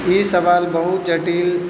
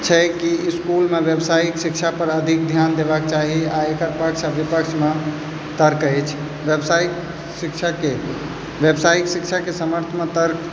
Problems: background sounds at intervals, background conversations at intervals